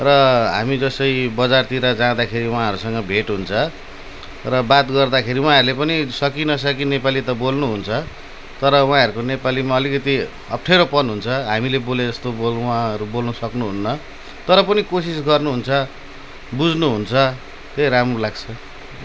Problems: none marked